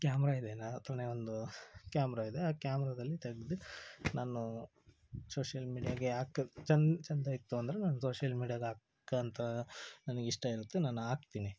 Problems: low volume